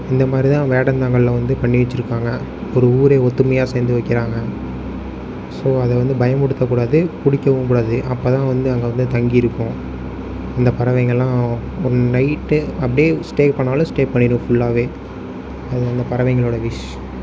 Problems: none marked